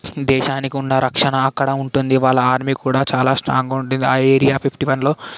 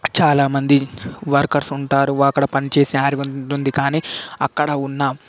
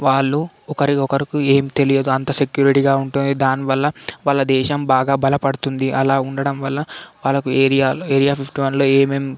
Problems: background sounds at intervals